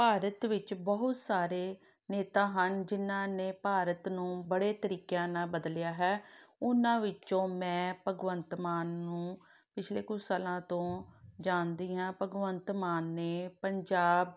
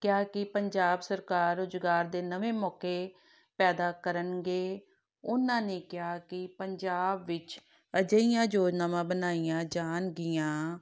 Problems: none marked